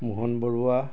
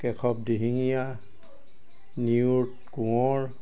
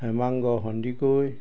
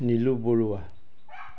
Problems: constant background noise